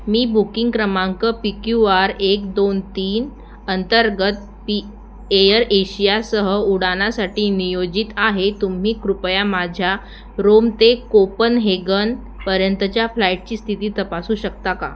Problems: none marked